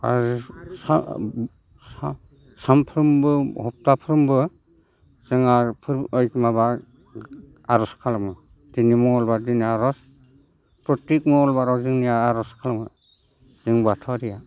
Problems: constant background noise